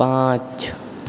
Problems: background sounds at intervals